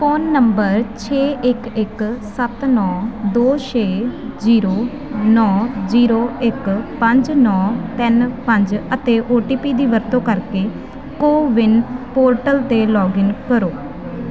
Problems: constant background noise